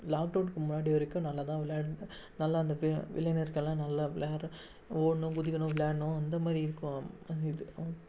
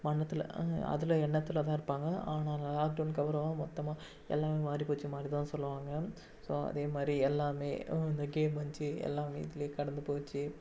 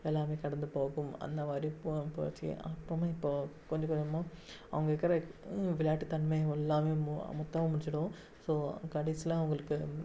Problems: background sounds at intervals, low volume